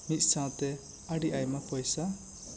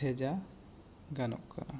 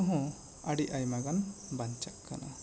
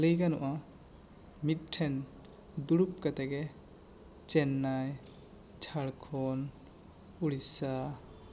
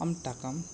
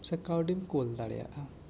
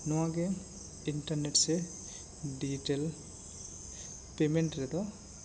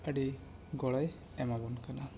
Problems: constant background noise